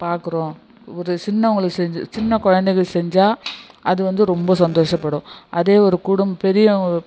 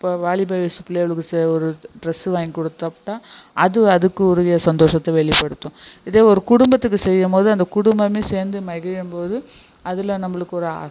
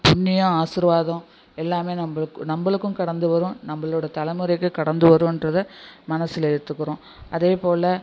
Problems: constant background noise, low volume